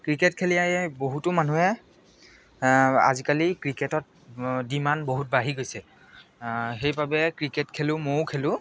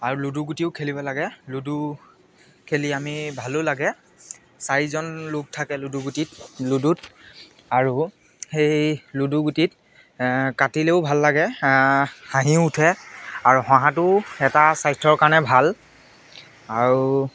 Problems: constant background noise